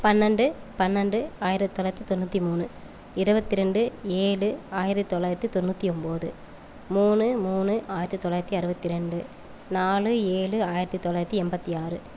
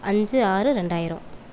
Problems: none marked